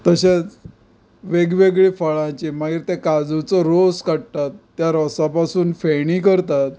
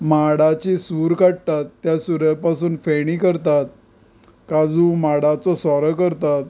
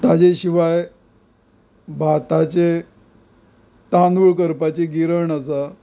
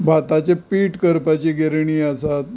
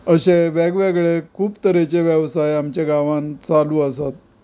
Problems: none marked